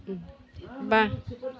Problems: constant background noise